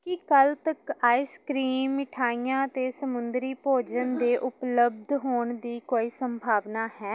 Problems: none marked